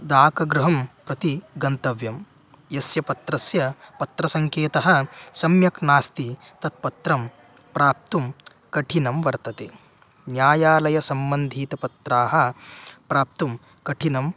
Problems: background sounds at intervals